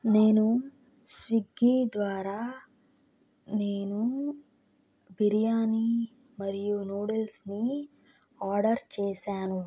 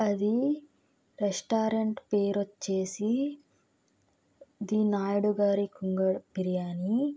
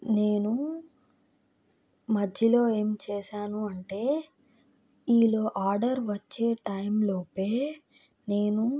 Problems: background sounds at intervals